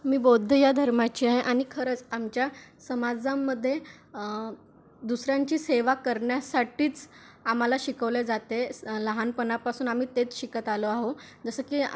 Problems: background sounds at intervals